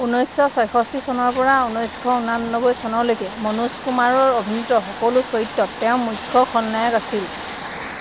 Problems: background sounds at intervals